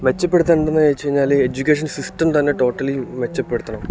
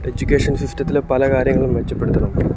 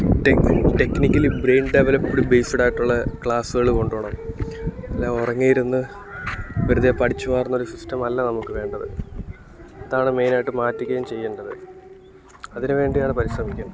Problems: constant background noise